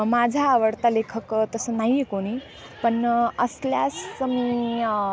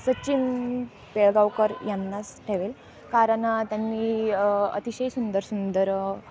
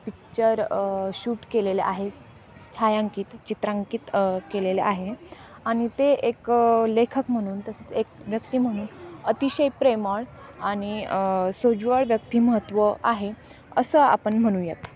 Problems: constant background noise, continuous background conversations